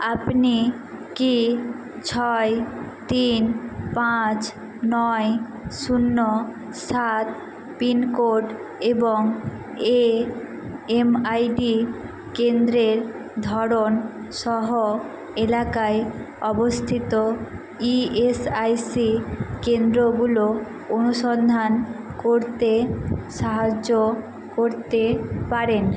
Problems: constant background noise